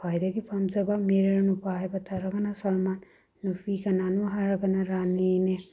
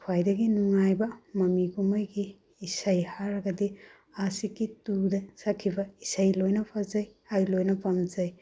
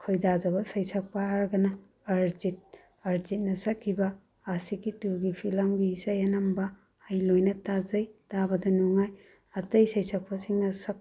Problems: none marked